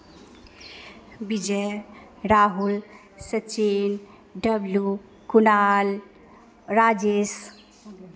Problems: none marked